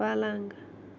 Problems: constant background noise